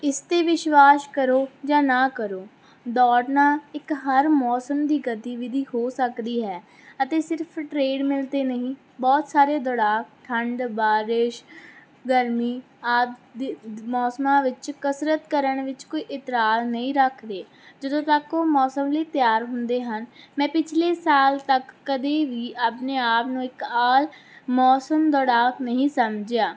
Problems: none marked